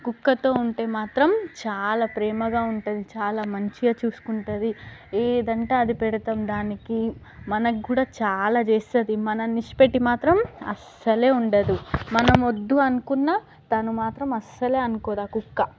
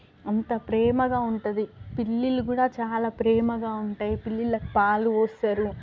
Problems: background sounds at intervals, background conversations at intervals